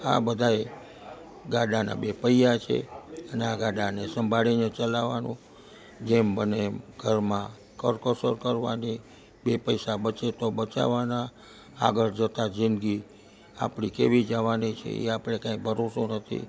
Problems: none marked